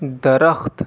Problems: none marked